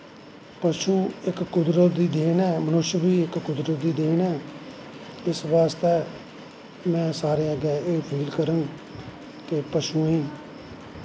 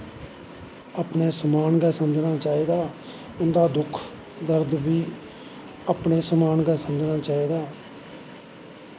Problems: constant background noise, echo